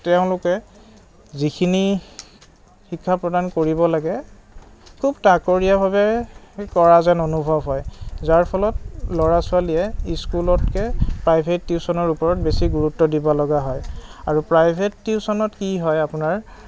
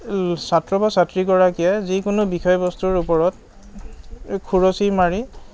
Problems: none marked